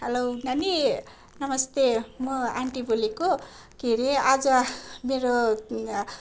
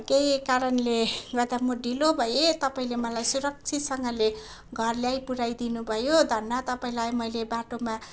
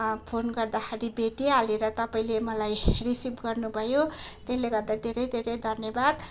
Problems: none marked